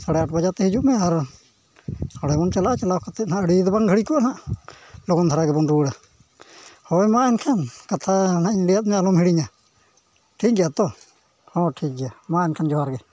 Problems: none marked